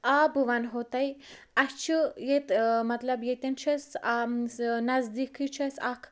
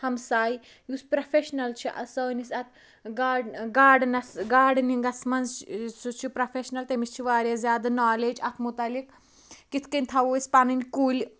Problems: none marked